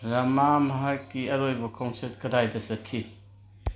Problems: none marked